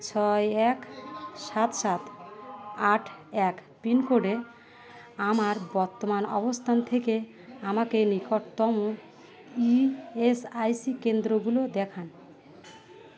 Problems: constant background noise, continuous background conversations